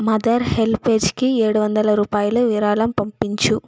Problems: background sounds at intervals